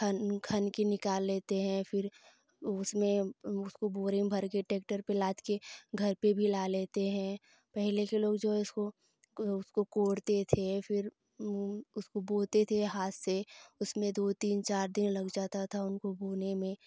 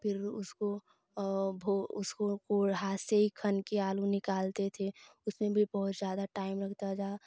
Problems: none marked